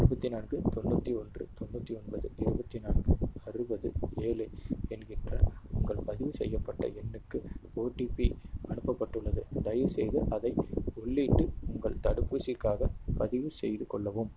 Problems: constant background noise